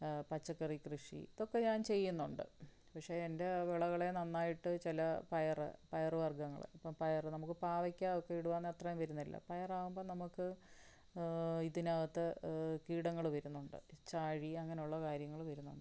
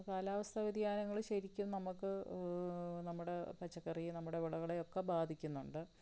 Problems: low volume